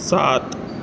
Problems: none marked